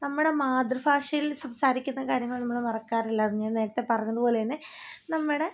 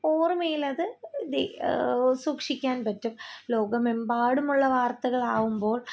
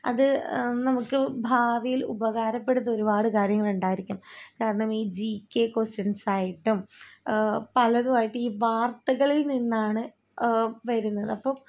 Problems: low volume